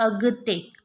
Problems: background sounds at intervals